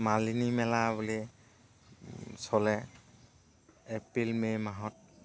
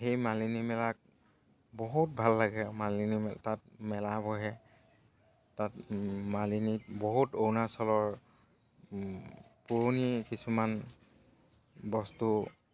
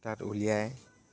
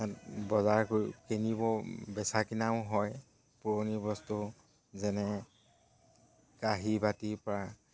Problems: background sounds at intervals